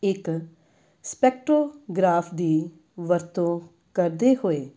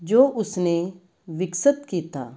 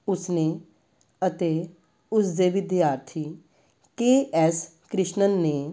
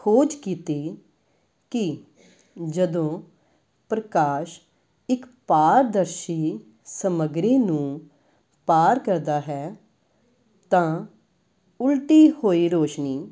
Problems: background conversations at intervals